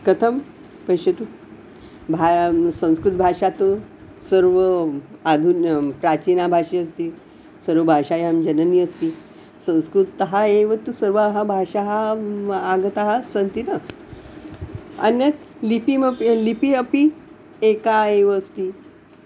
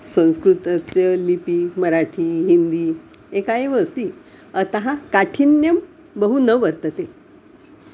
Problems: background sounds at intervals